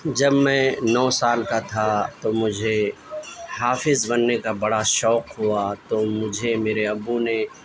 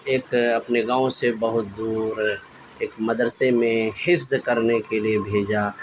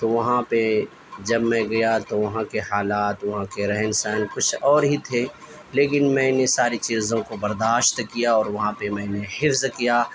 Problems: constant background noise